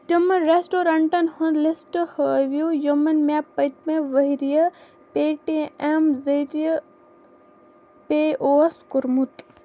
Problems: background sounds at intervals